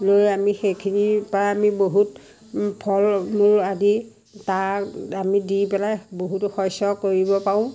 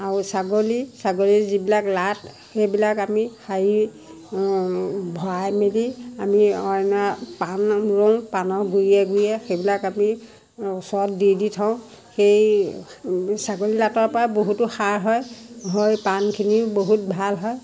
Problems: background sounds at intervals